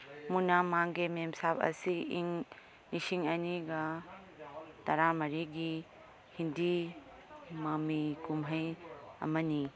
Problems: none marked